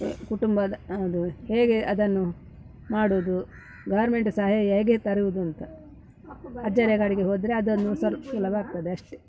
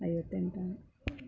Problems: background sounds at intervals